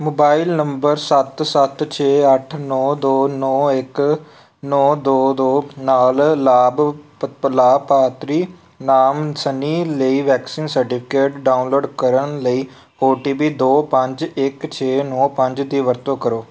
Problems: none marked